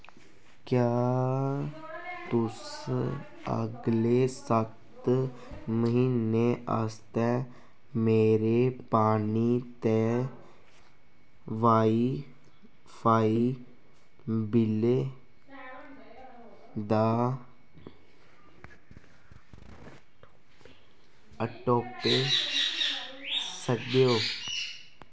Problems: constant background noise